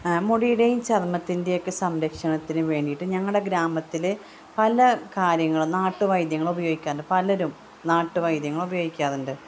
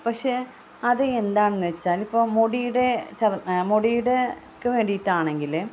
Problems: constant background noise, background conversations at intervals